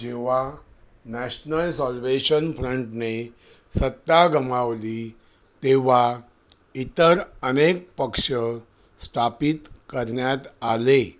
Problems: none marked